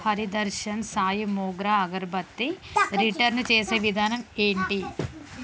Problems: constant background noise, background conversations at intervals